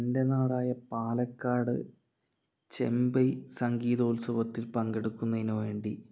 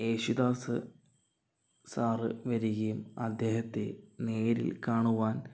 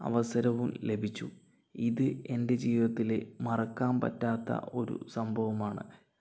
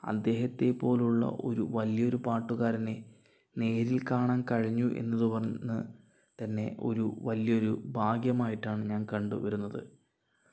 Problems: low volume